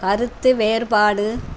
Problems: constant background noise